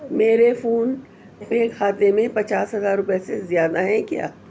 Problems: constant background noise, background conversations at intervals